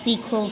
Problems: none marked